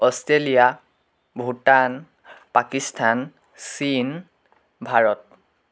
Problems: constant background noise